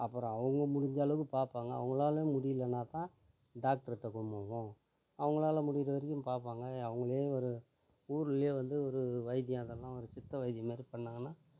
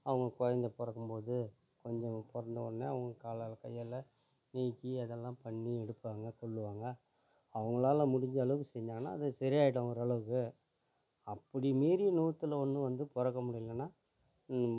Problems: low volume